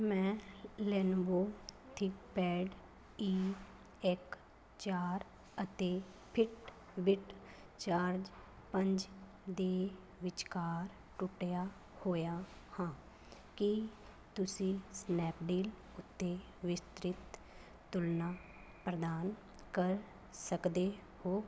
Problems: none marked